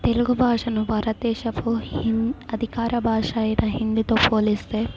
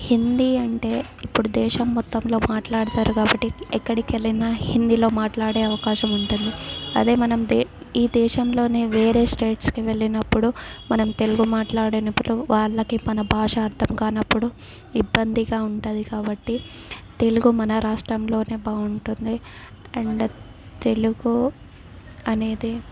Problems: background sounds at intervals, background conversations at intervals